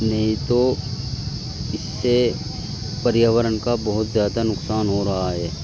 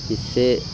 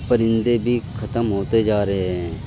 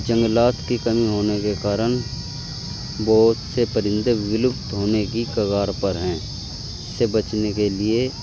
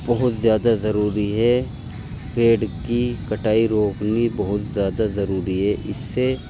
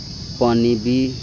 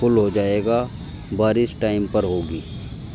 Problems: constant background noise